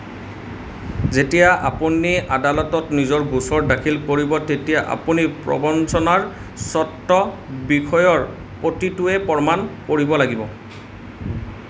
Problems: constant background noise